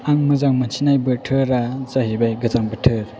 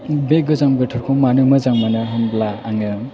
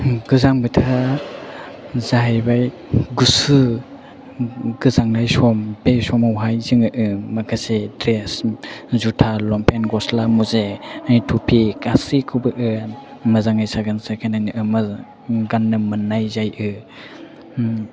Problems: background sounds at intervals